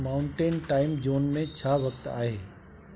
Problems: constant background noise